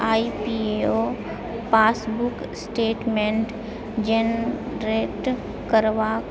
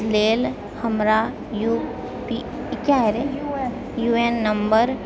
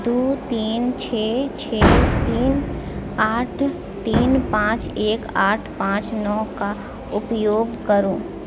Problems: background sounds at intervals, background conversations at intervals